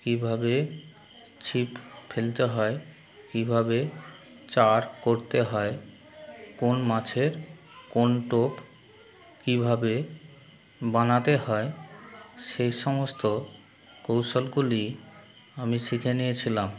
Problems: constant background noise